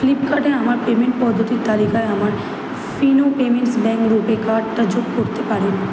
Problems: none marked